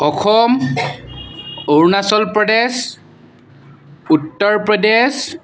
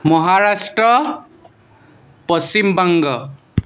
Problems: constant background noise